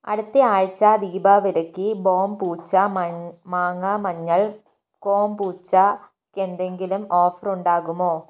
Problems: none marked